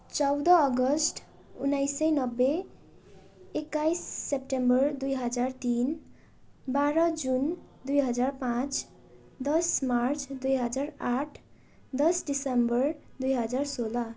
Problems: constant background noise